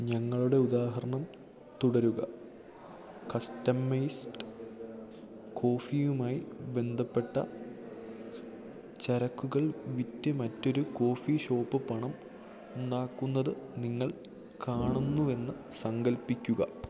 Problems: none marked